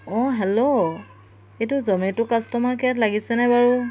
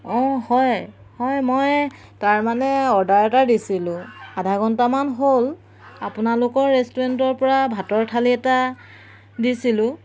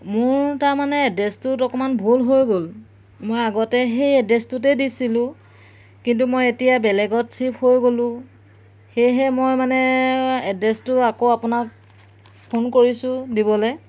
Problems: background sounds at intervals